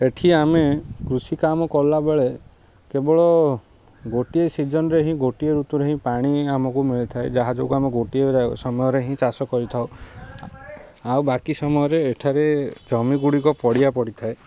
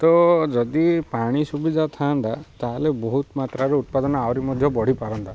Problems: constant background noise